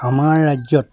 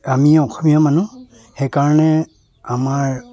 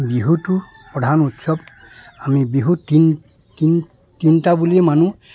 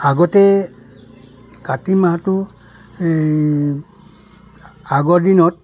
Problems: none marked